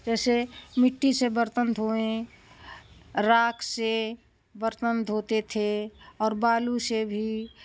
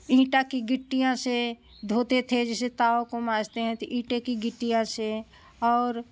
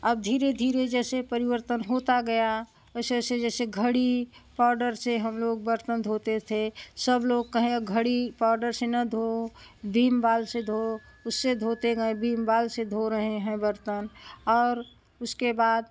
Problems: none marked